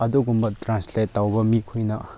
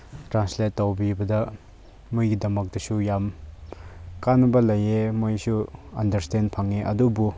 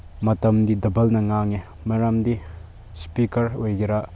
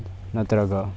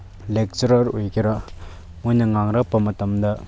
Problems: none marked